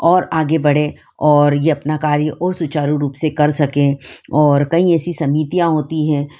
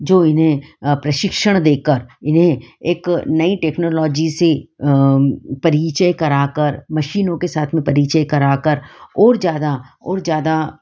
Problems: background sounds at intervals